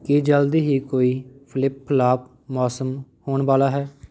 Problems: none marked